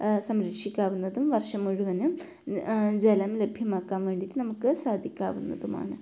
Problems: low volume